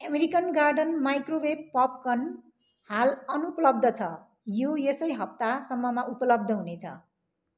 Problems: none marked